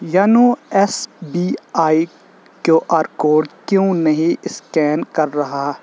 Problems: constant background noise